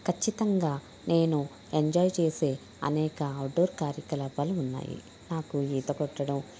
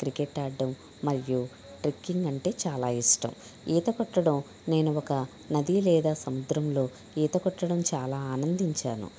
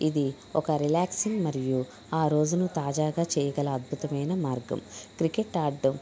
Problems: background conversations at intervals